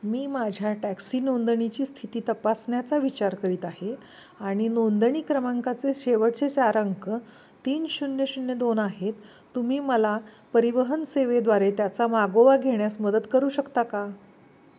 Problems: background sounds at intervals